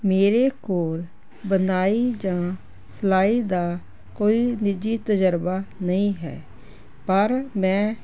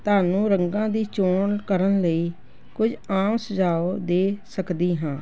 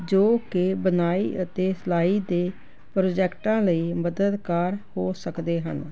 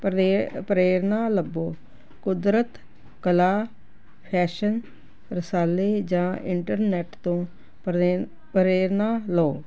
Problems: constant background noise